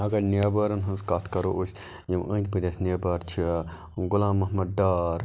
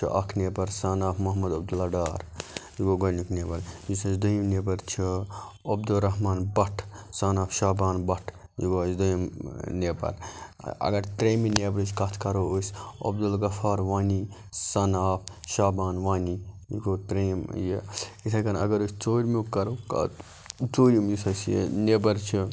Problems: background sounds at intervals